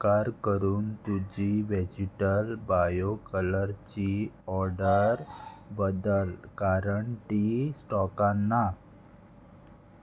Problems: constant background noise